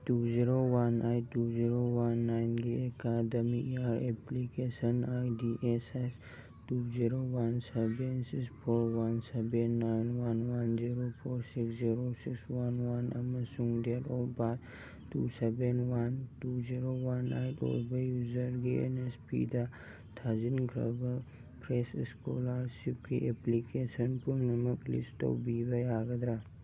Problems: background sounds at intervals